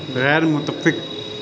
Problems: constant background noise